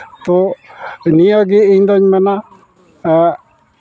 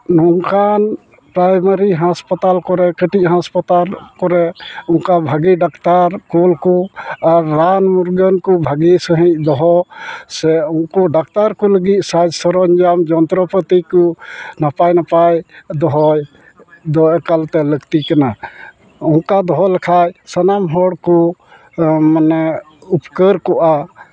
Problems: constant background noise, background conversations at intervals